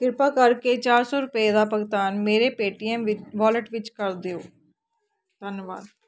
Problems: none marked